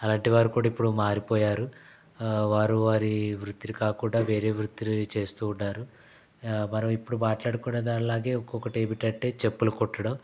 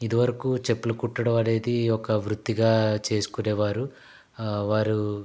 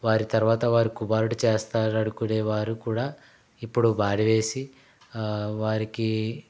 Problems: constant background noise